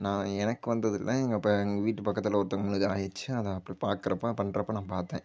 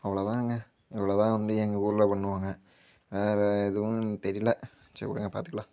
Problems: background sounds at intervals